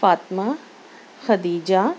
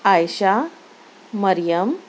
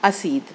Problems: none marked